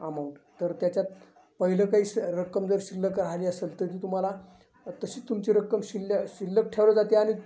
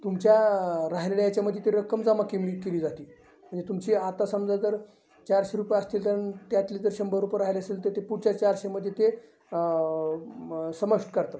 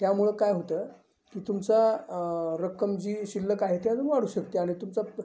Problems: constant background noise, continuous background conversations, low volume